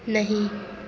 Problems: none marked